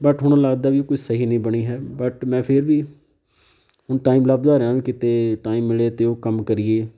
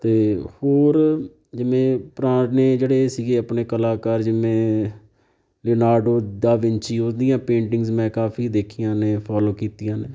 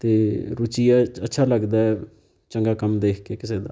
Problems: none marked